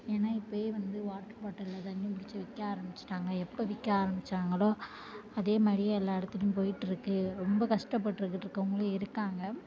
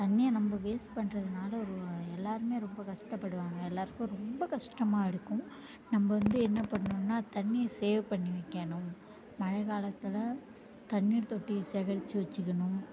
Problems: low volume